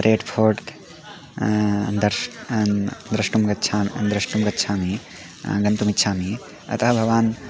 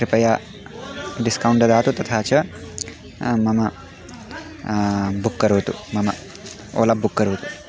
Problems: background sounds at intervals